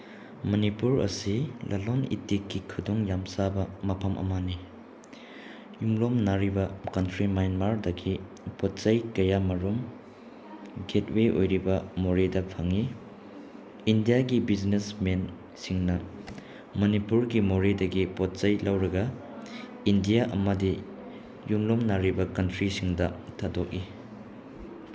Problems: background sounds at intervals